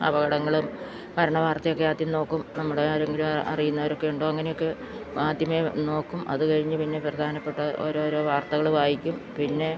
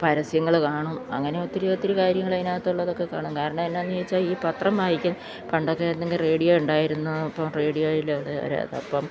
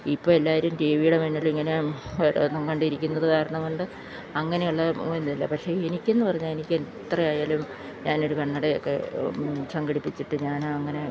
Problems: constant background noise